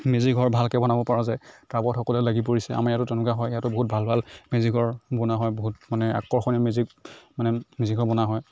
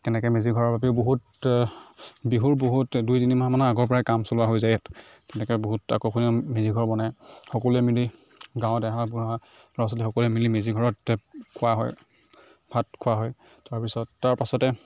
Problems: none marked